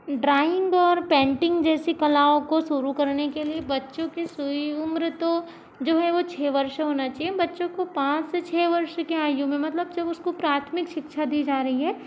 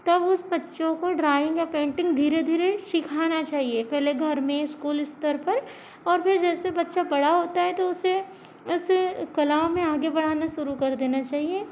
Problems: constant background noise